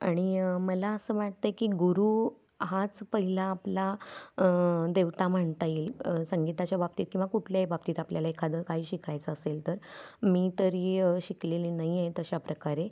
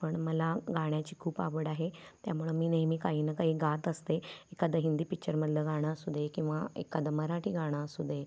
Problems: background sounds at intervals